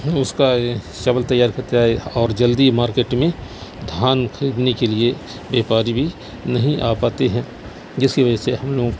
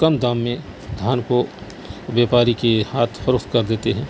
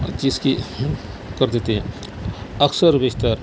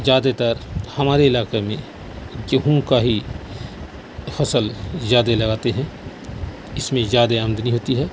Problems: constant background noise